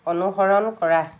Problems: none marked